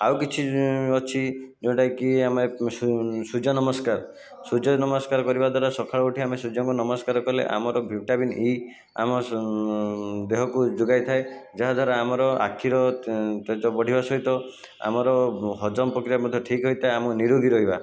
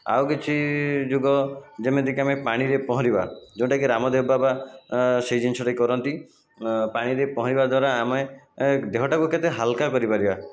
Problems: constant background noise, continuous background conversations